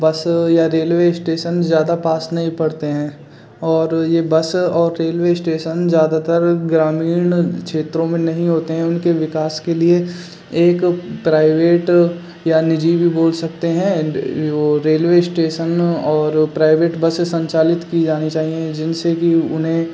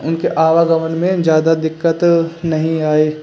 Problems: constant background noise